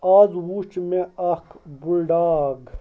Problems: none marked